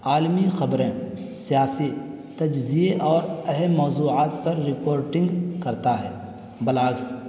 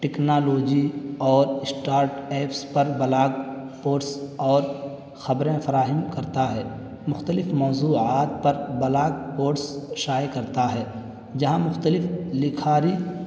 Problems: constant background noise